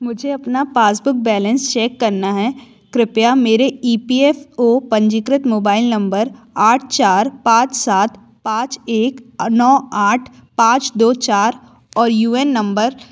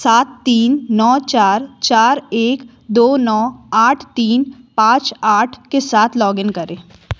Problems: background sounds at intervals